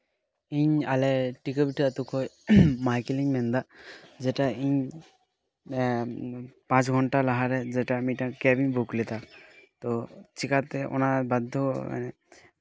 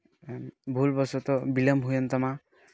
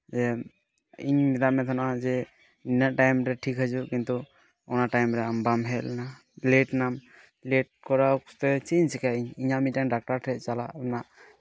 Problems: none marked